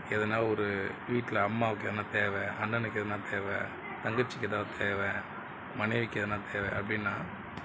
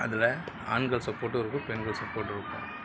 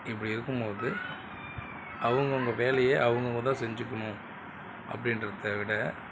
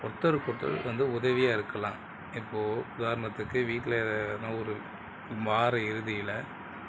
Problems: background sounds at intervals